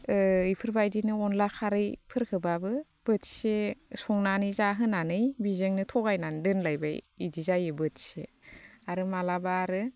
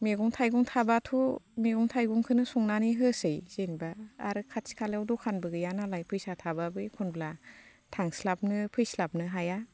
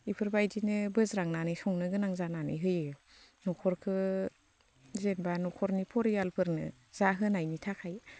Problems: constant background noise